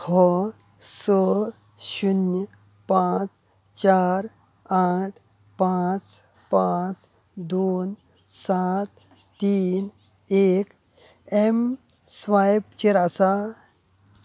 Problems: constant background noise